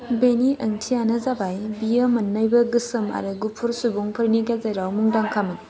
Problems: constant background noise